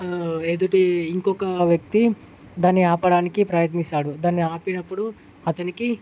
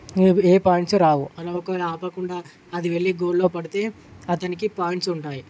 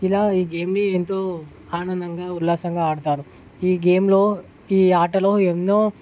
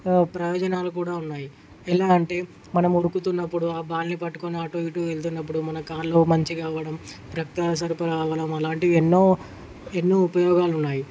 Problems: none marked